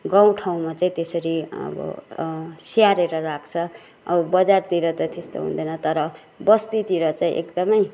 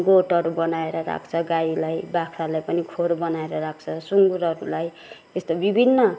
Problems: background sounds at intervals, background conversations at intervals